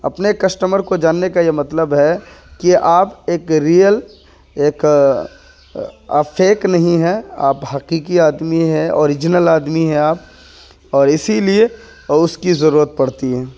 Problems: none marked